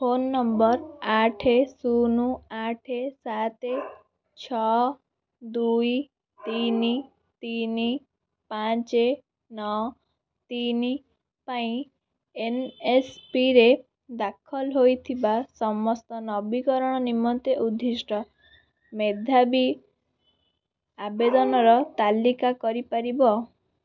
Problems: background sounds at intervals, background conversations at intervals